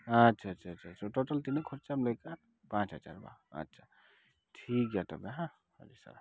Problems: none marked